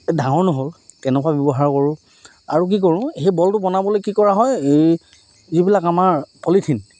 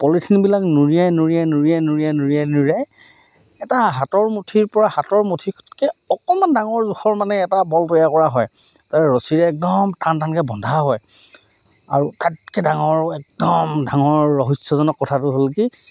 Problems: none marked